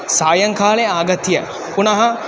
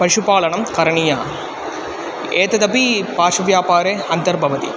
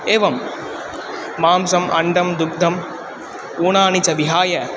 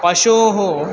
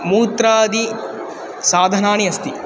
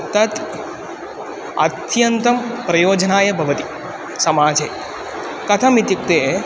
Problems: constant background noise